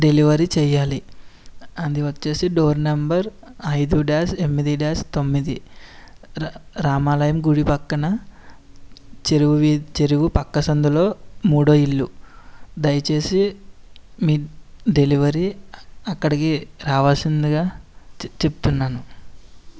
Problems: none marked